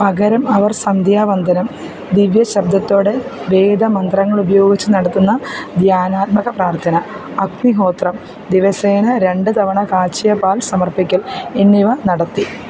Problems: constant background noise